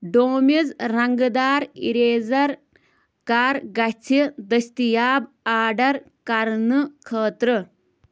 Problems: background sounds at intervals